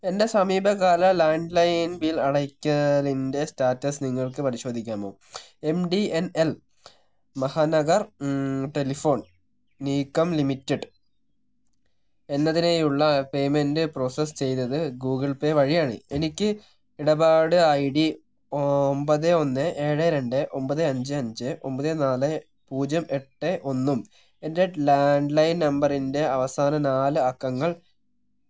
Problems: none marked